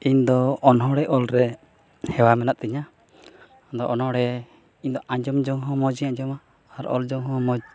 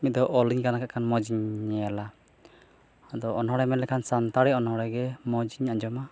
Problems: none marked